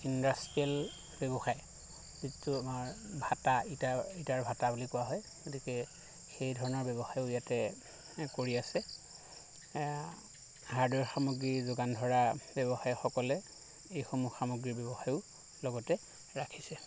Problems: none marked